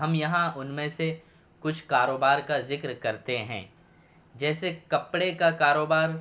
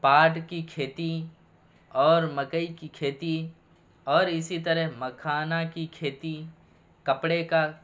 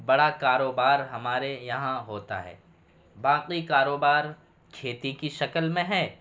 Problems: background sounds at intervals